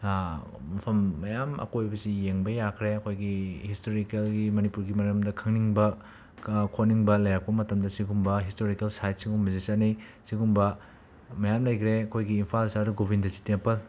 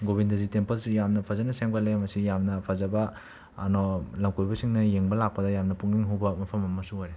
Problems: constant background noise